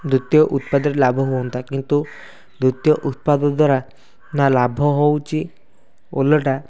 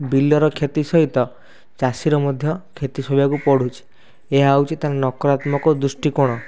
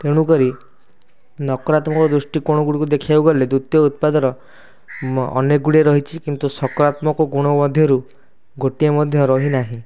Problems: constant background noise